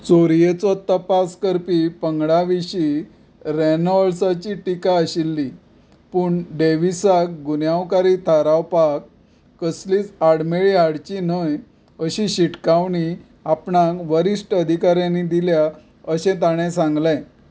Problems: background sounds at intervals